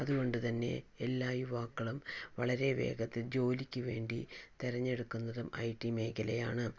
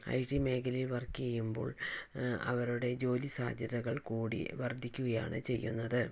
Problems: low volume